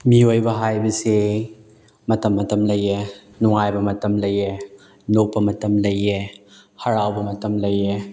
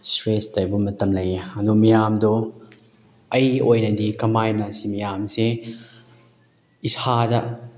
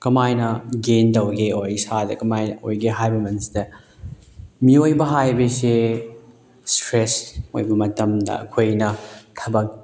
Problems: none marked